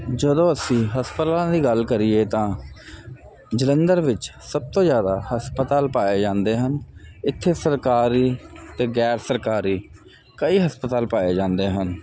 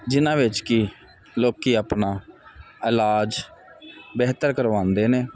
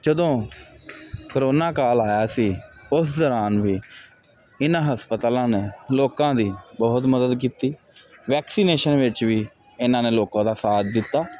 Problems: constant background noise